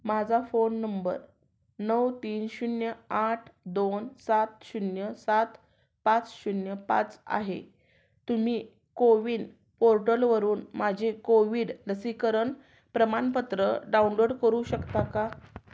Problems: background sounds at intervals